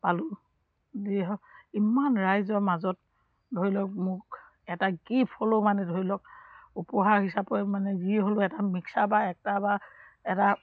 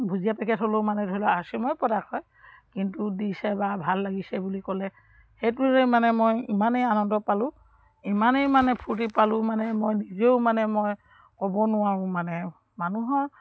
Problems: background sounds at intervals